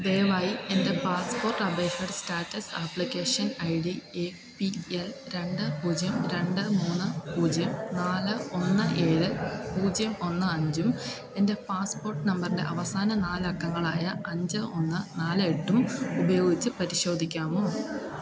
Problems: continuous background conversations